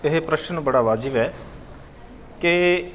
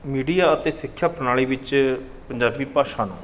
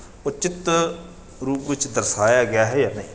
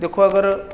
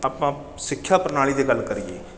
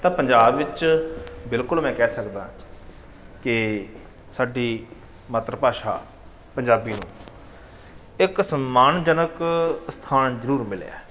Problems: background sounds at intervals